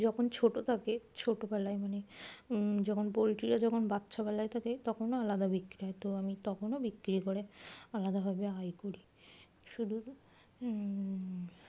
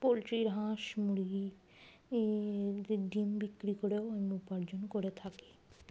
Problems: none marked